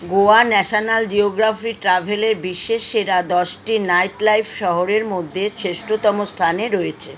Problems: constant background noise